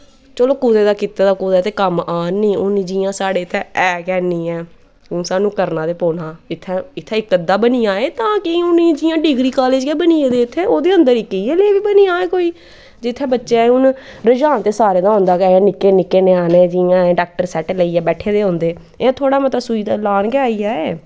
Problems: background sounds at intervals